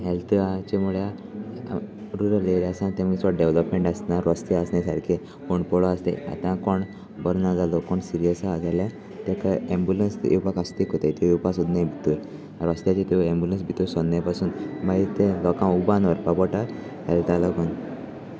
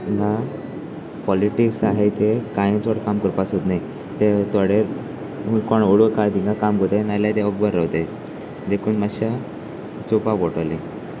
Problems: constant background noise